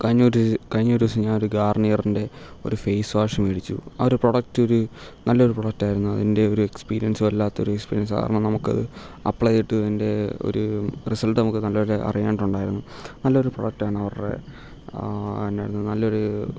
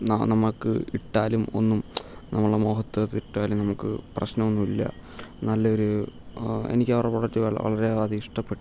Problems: none marked